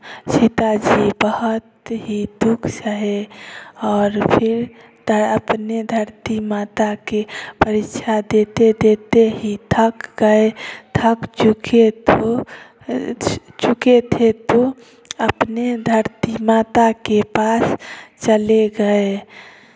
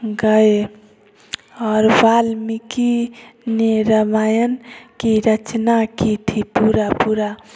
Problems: constant background noise